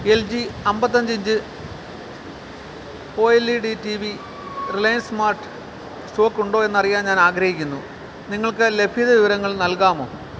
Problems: none marked